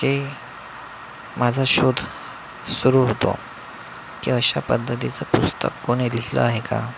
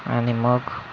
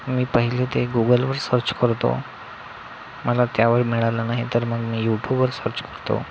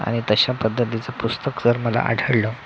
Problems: constant background noise